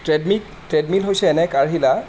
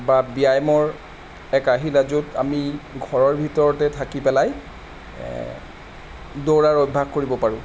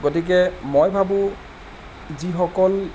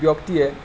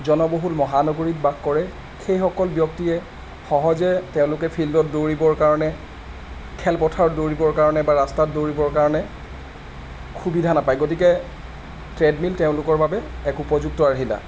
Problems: constant background noise